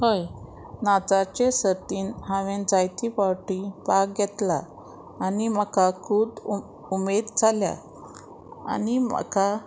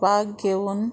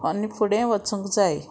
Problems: none marked